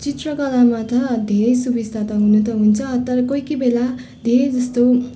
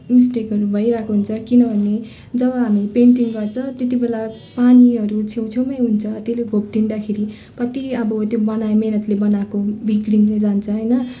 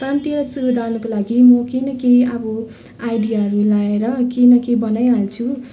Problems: constant background noise